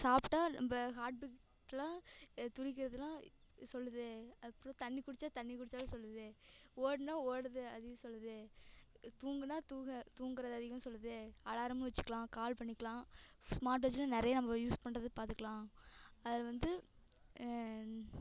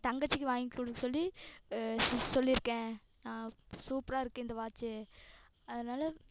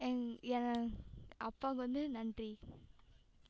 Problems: echo